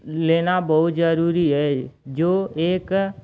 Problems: constant background noise